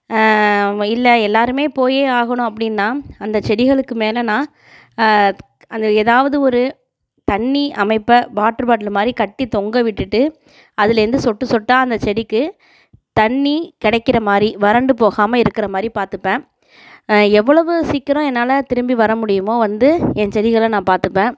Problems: background sounds at intervals